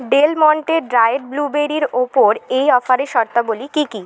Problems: none marked